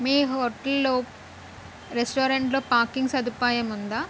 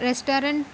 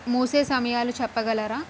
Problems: constant background noise